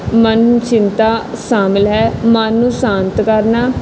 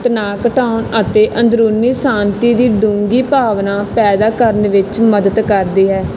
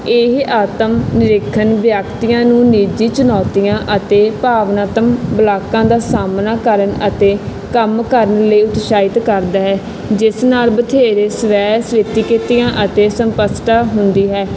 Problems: constant background noise